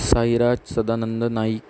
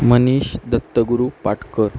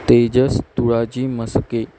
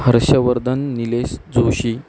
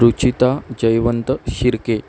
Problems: constant background noise